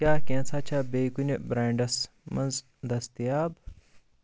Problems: none marked